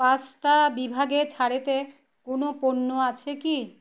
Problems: none marked